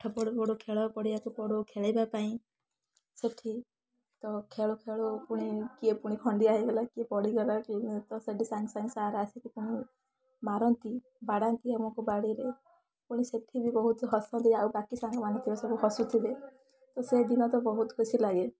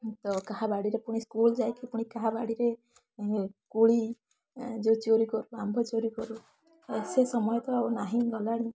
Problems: constant background noise, continuous background conversations